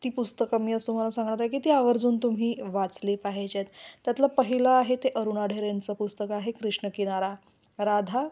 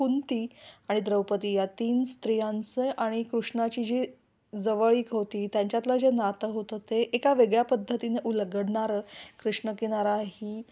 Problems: none marked